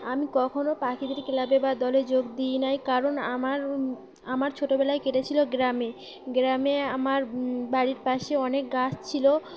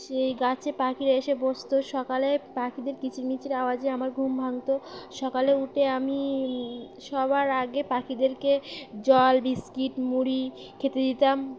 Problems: constant background noise, background conversations at intervals